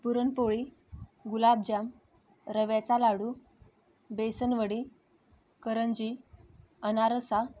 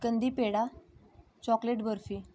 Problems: constant background noise, background conversations at intervals